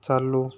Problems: constant background noise